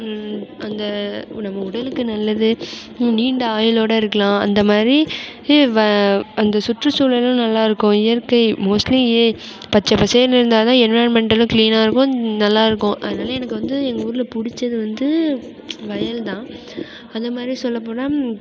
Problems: constant background noise